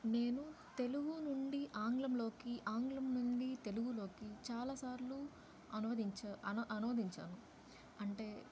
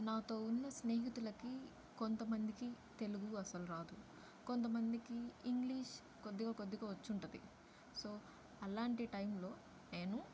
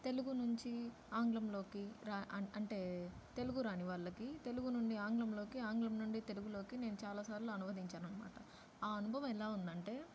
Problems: low volume